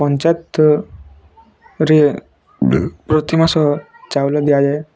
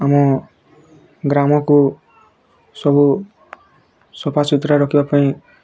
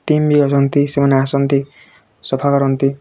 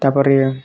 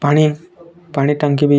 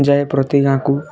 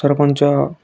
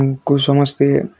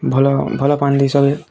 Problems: constant background noise, continuous background conversations